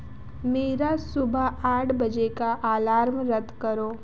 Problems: constant background noise